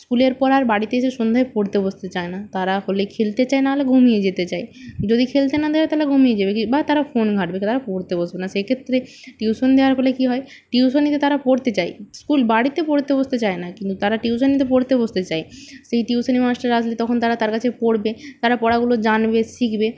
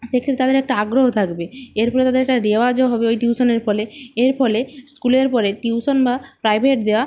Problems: low volume